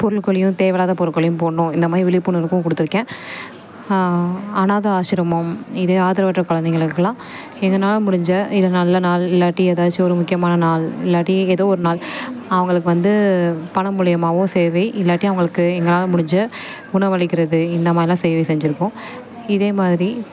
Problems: background conversations at intervals